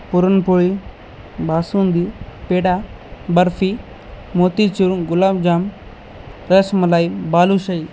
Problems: constant background noise